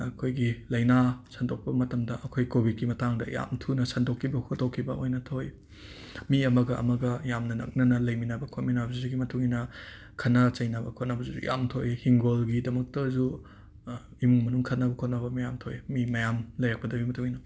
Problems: background sounds at intervals